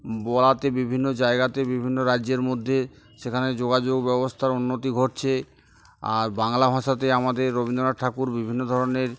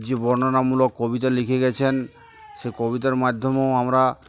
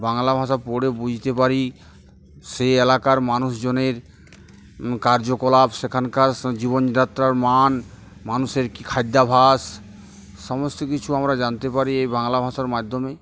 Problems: none marked